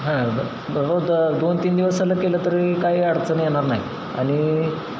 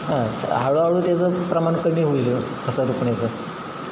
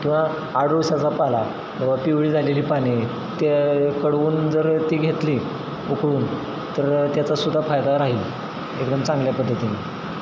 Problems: constant background noise